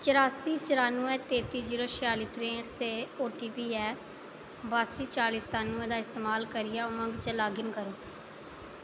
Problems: none marked